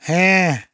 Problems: none marked